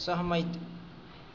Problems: none marked